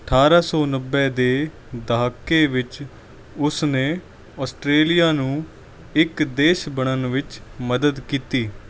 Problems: none marked